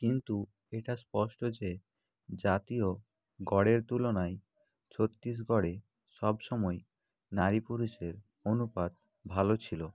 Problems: none marked